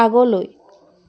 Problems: none marked